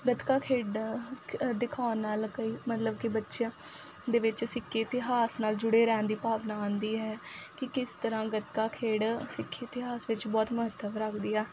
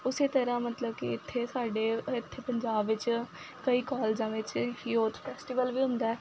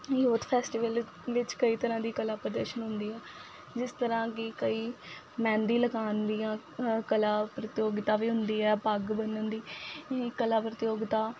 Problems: none marked